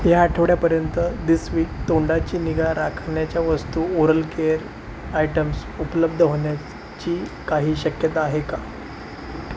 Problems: constant background noise